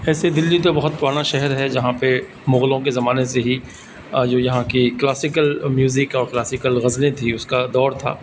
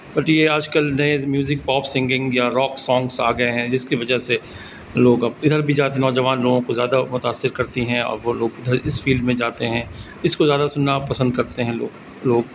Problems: constant background noise